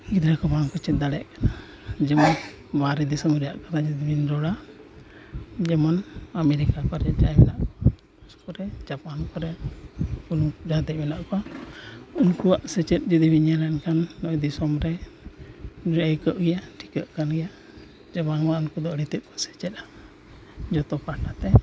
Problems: constant background noise, low volume